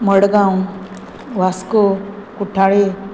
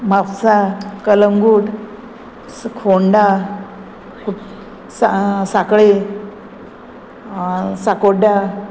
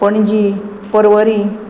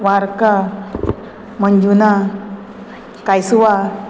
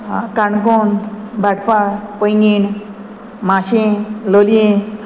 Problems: none marked